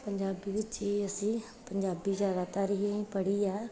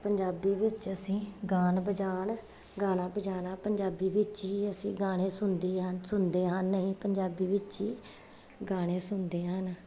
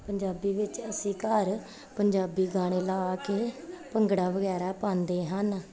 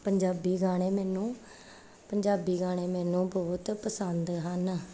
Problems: background sounds at intervals